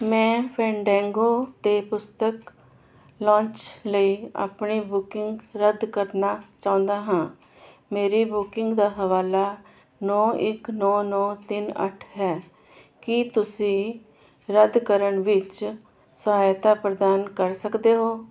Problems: constant background noise